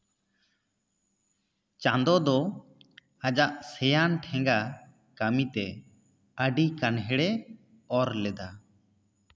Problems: echo